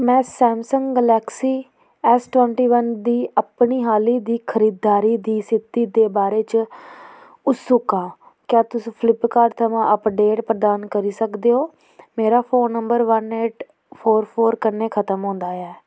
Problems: none marked